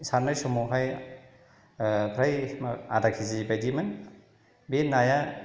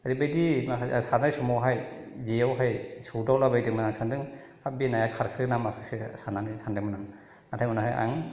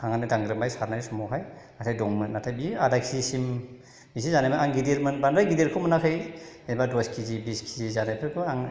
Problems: none marked